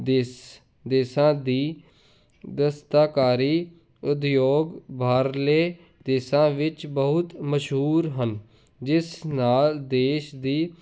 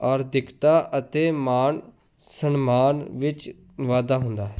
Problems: none marked